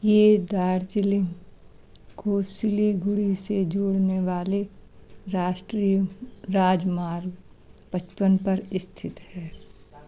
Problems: background sounds at intervals, background conversations at intervals